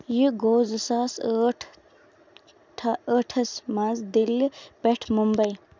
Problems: none marked